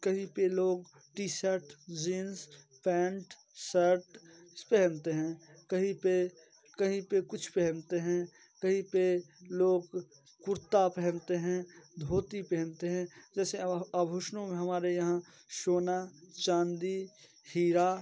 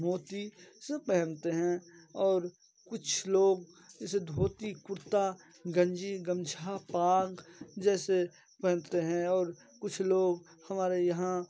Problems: constant background noise, low volume